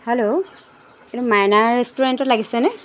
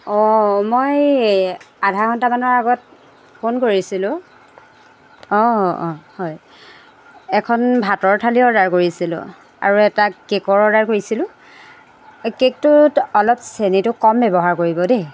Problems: constant background noise